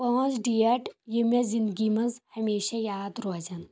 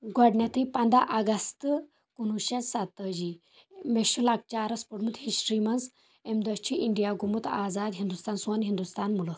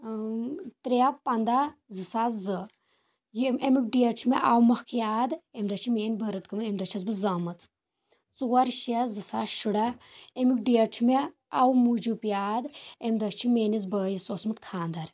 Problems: none marked